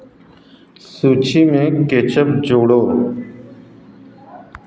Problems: constant background noise